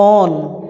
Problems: none marked